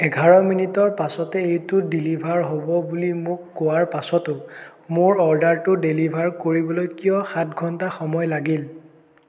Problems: none marked